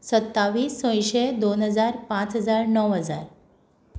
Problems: none marked